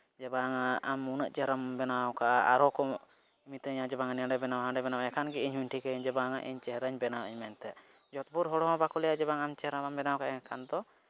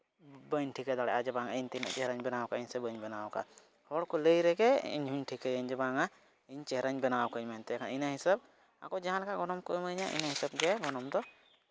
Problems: none marked